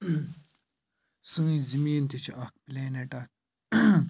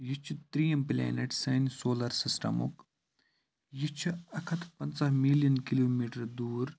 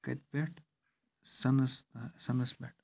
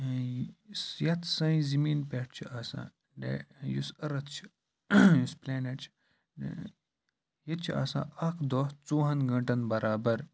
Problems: constant background noise